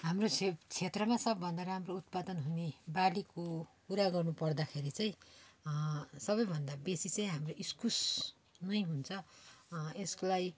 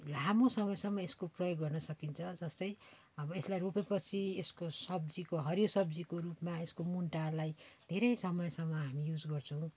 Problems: background sounds at intervals